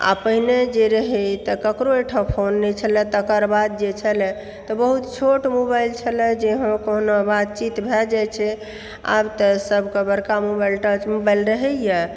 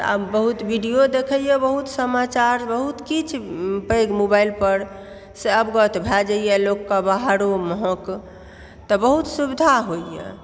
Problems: background sounds at intervals